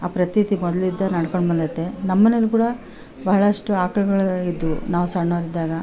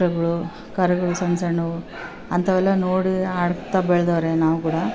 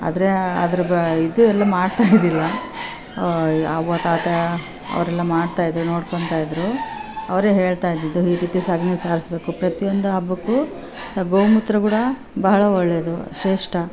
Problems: background sounds at intervals